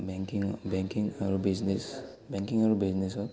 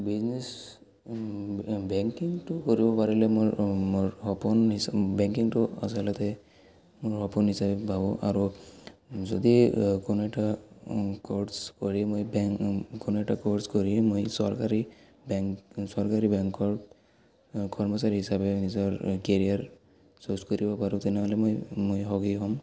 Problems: background sounds at intervals, background conversations at intervals